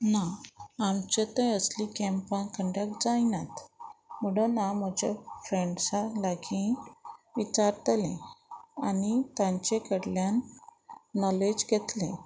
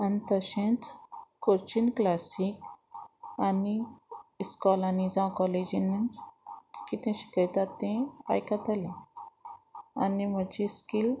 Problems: none marked